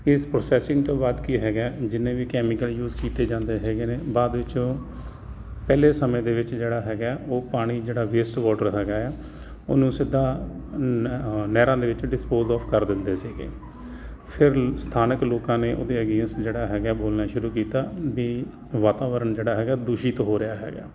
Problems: constant background noise